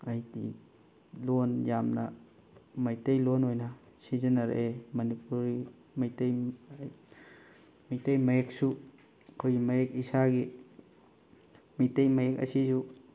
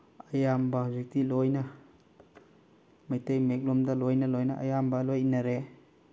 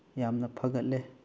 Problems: background sounds at intervals